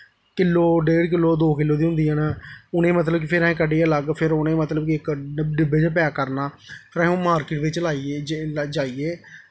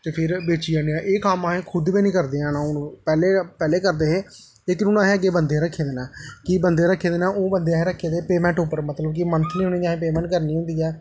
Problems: echo